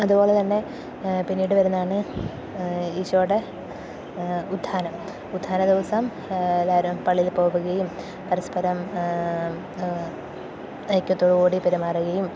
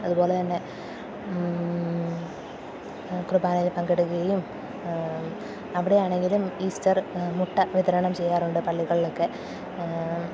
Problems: low volume